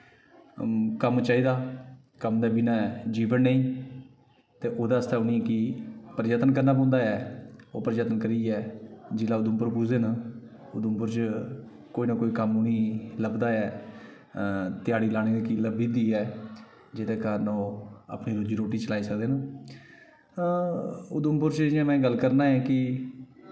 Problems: background sounds at intervals, echo